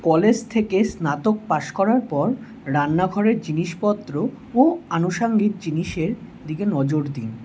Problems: none marked